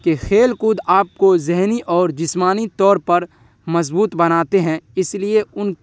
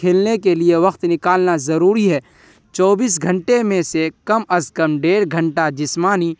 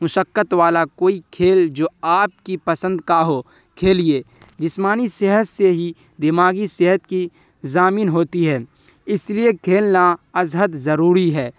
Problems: none marked